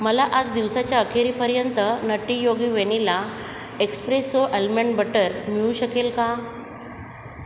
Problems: constant background noise